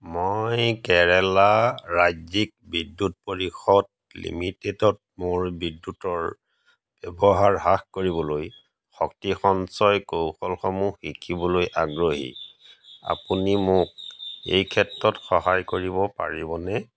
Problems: none marked